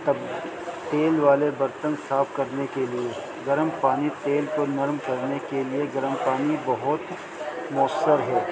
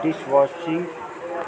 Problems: constant background noise